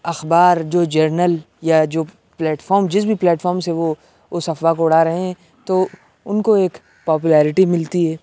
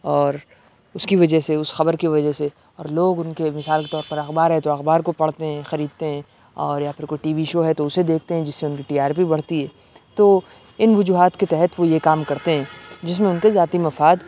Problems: constant background noise